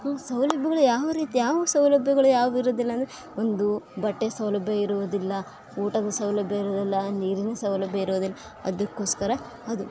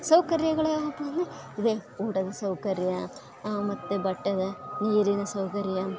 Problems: constant background noise